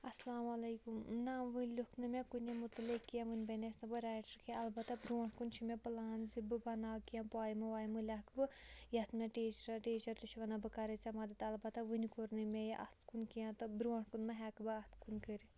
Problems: low volume